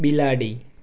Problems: none marked